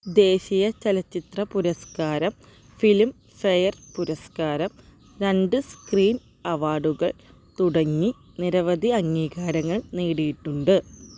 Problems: background sounds at intervals